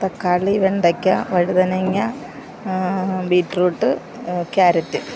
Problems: background sounds at intervals